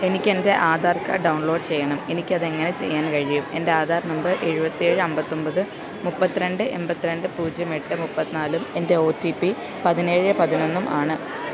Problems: continuous background conversations